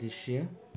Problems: background sounds at intervals